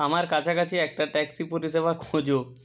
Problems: background sounds at intervals